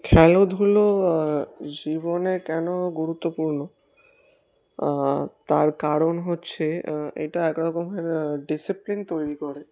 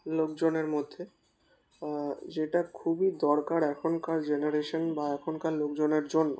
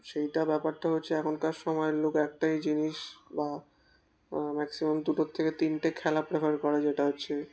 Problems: constant background noise